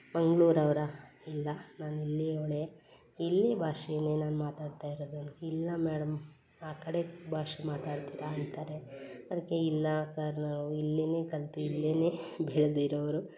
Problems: none marked